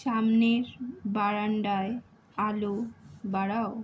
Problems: background sounds at intervals